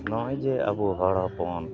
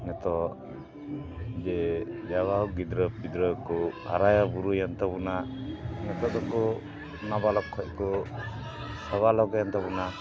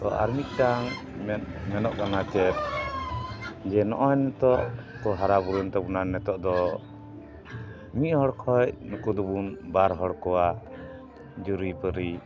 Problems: constant background noise